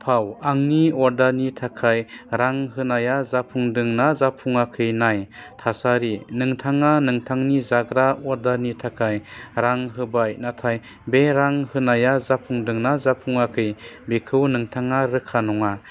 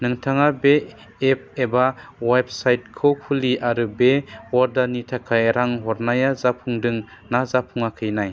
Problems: low volume